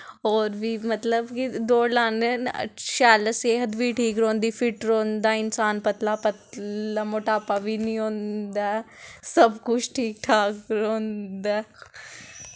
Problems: none marked